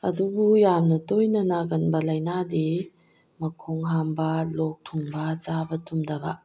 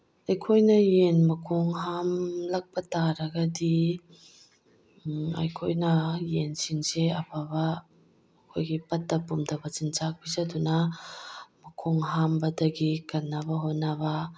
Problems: background sounds at intervals